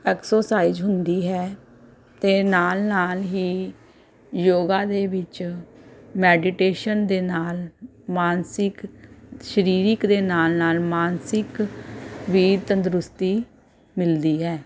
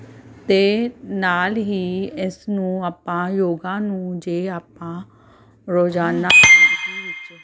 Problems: none marked